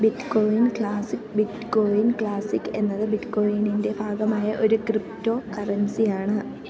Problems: none marked